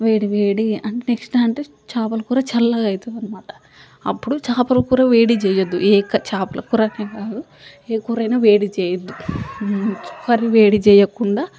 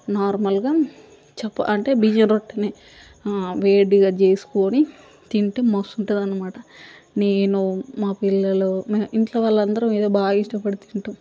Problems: none marked